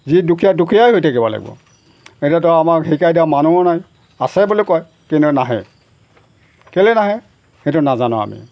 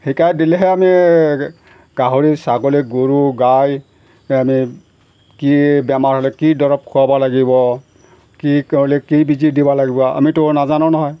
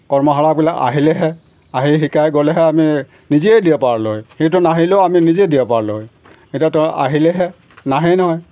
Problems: background sounds at intervals